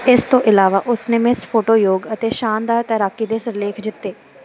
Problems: constant background noise